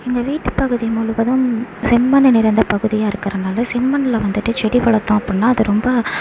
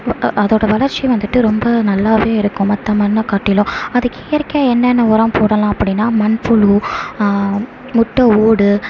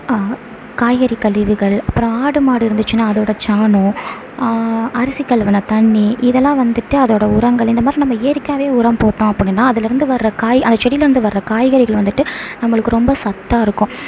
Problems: constant background noise